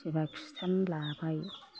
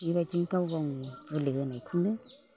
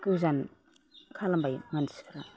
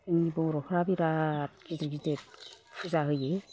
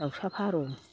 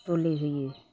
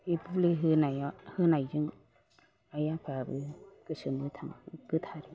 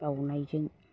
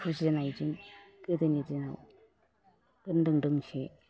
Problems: none marked